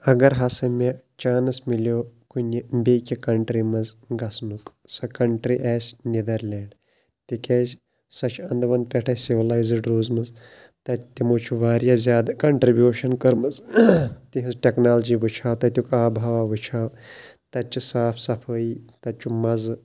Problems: none marked